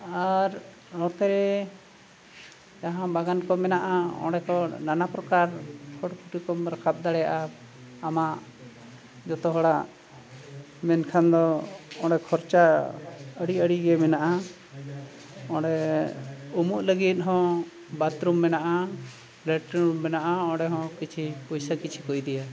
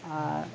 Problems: background sounds at intervals